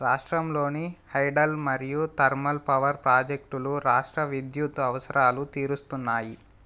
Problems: none marked